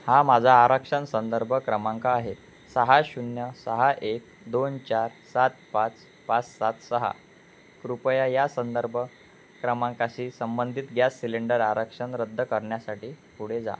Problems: none marked